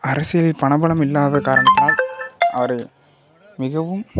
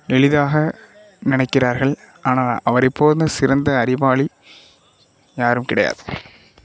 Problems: background sounds at intervals